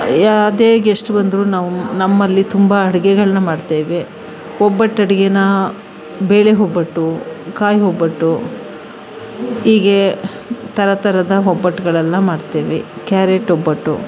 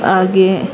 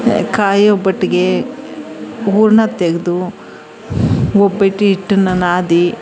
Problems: background sounds at intervals, background conversations at intervals